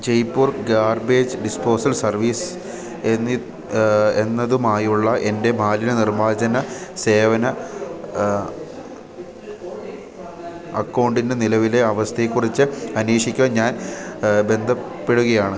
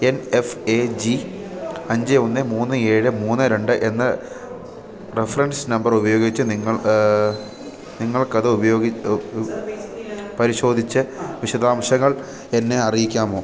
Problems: constant background noise